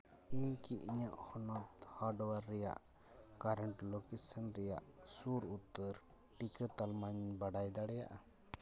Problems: background sounds at intervals